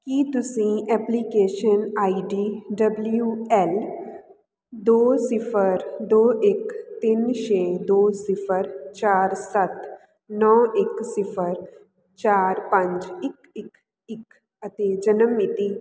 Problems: constant background noise